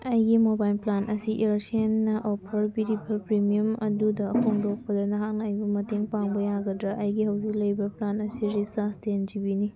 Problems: background sounds at intervals